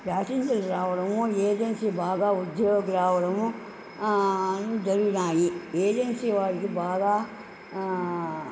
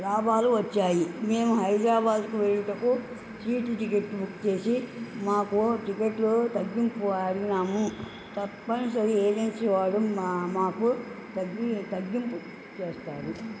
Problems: constant background noise